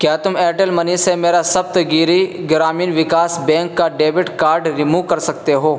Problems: constant background noise